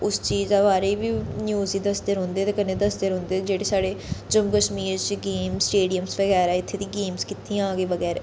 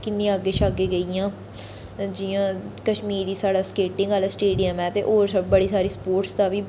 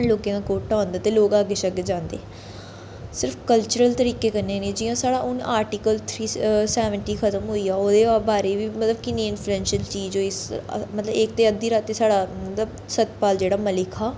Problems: background sounds at intervals, echo